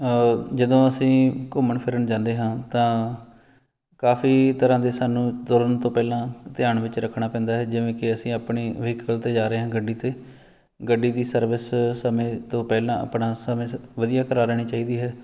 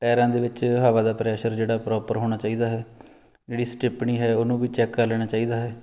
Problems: background sounds at intervals